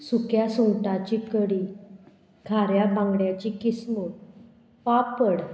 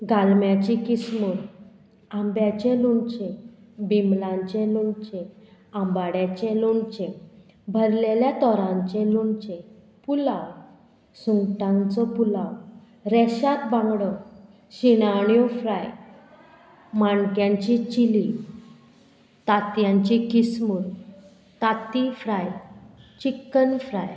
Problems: none marked